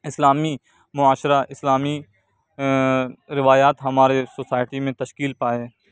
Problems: background sounds at intervals